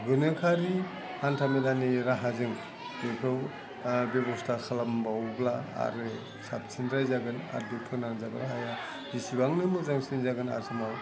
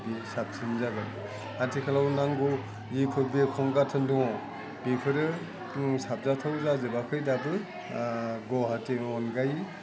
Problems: low volume